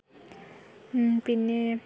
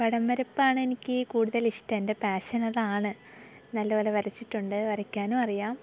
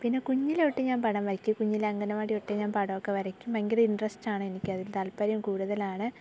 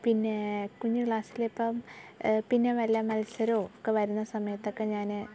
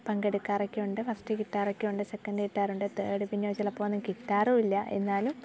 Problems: background sounds at intervals, low volume